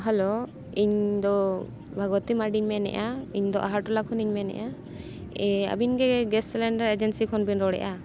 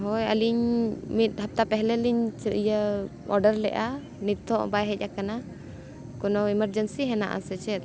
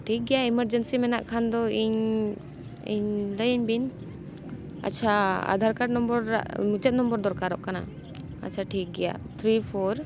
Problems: background sounds at intervals